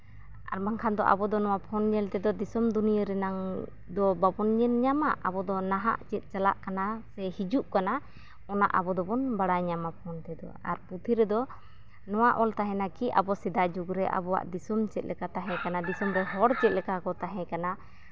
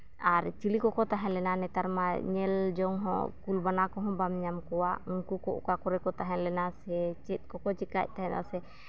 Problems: background sounds at intervals, low volume